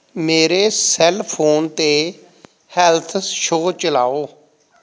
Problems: background conversations at intervals